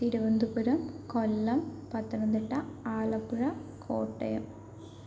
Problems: low volume